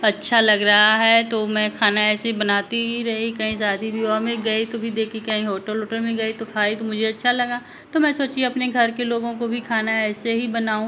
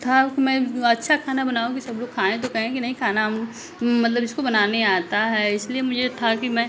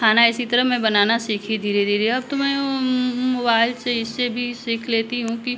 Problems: none marked